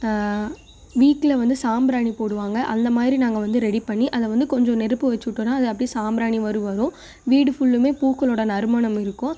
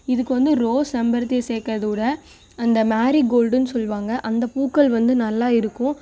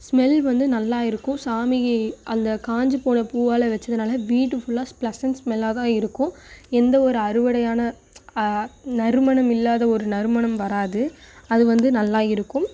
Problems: none marked